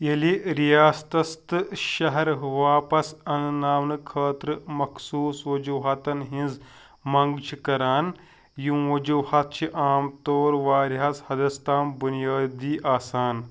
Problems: background sounds at intervals